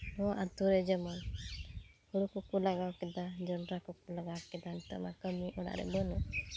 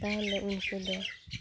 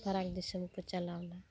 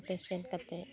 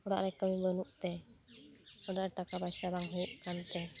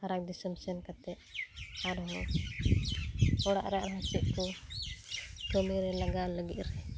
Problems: constant background noise